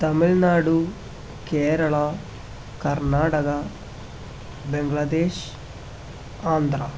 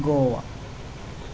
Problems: constant background noise